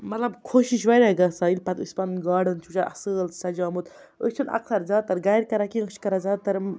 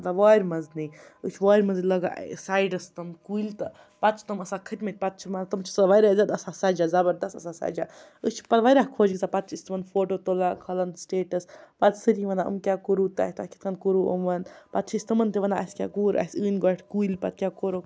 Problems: none marked